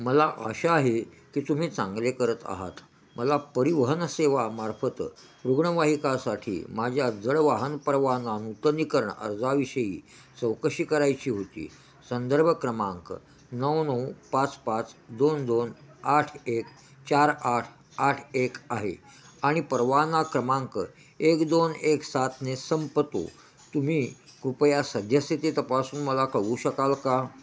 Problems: constant background noise